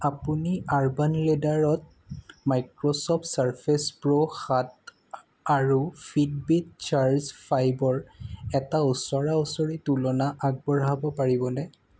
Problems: background sounds at intervals